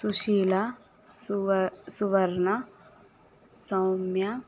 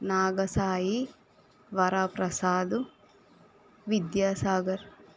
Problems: constant background noise